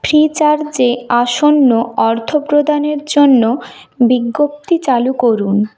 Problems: constant background noise